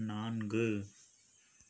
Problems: low volume